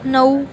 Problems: constant background noise, continuous background conversations